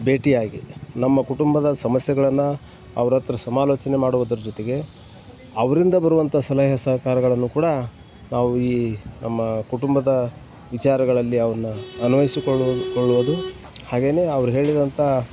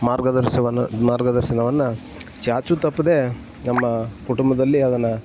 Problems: background sounds at intervals